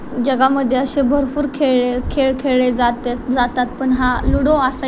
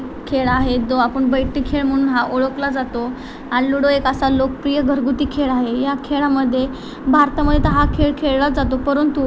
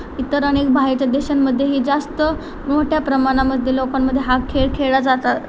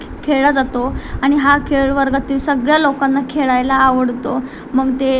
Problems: constant background noise